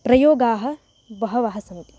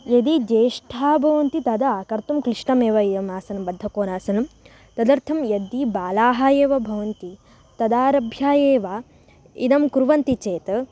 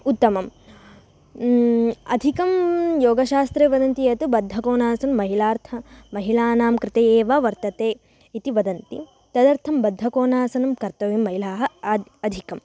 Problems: none marked